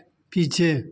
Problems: none marked